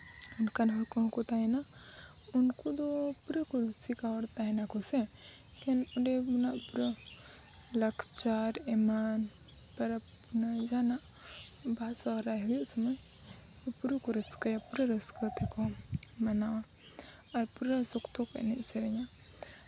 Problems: background sounds at intervals